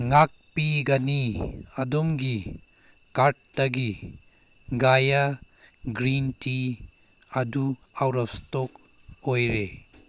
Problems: background sounds at intervals